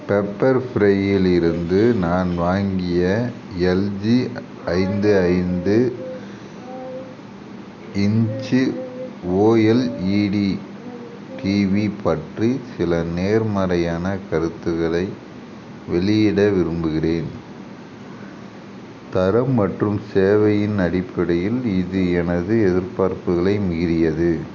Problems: constant background noise